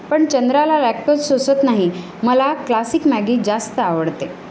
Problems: constant background noise